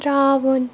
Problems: background sounds at intervals